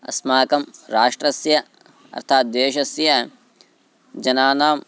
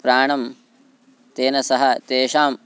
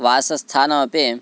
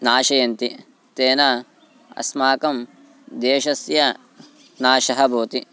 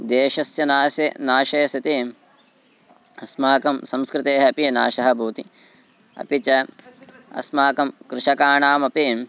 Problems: constant background noise